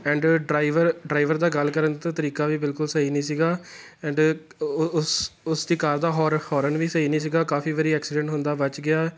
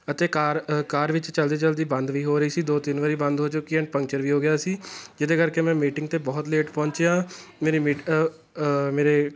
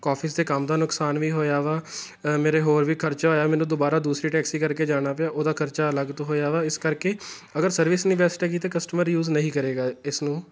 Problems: background sounds at intervals